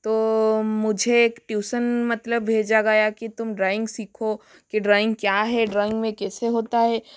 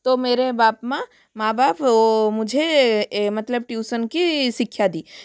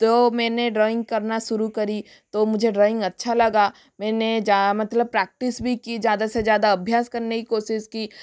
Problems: background sounds at intervals